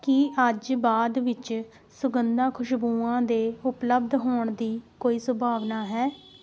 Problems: background sounds at intervals